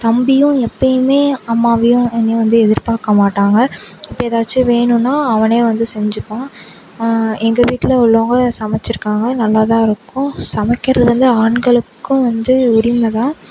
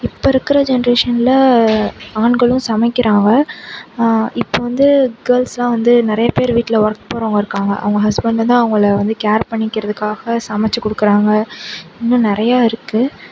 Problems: constant background noise